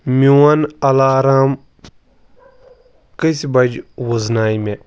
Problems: none marked